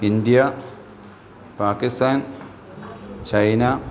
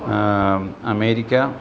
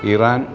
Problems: background conversations at intervals